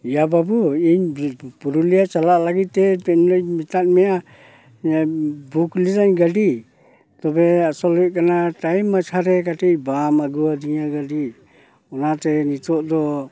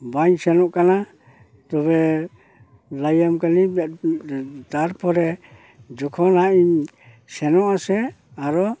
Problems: none marked